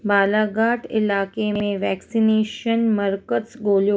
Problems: none marked